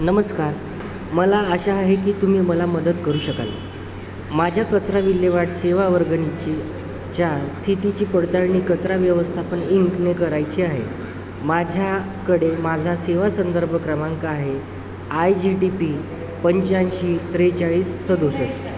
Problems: constant background noise, continuous background conversations